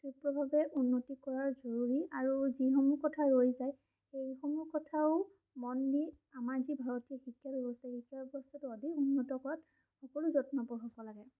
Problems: none marked